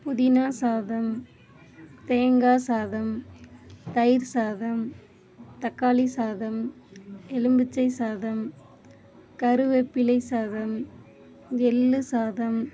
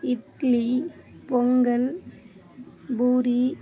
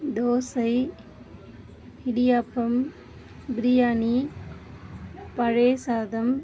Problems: low volume